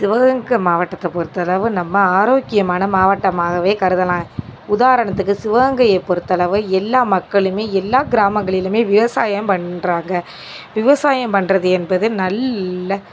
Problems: none marked